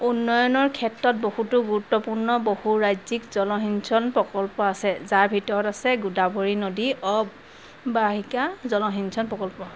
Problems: constant background noise